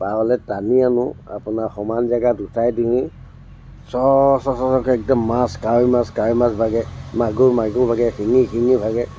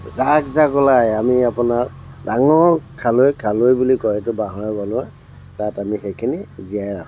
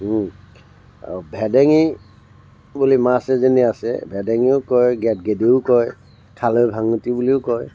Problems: constant background noise